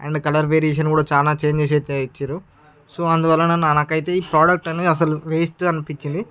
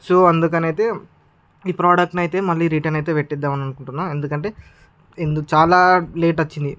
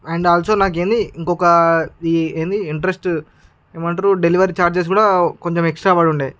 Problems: background sounds at intervals